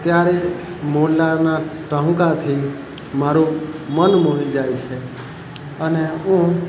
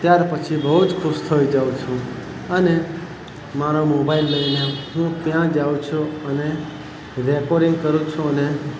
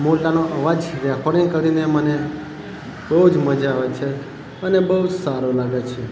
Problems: constant background noise